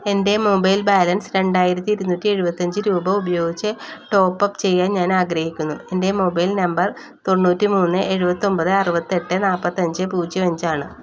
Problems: none marked